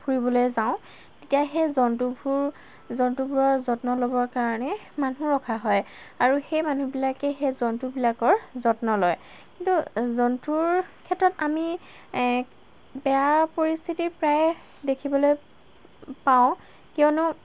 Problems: constant background noise